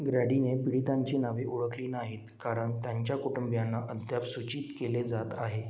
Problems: background sounds at intervals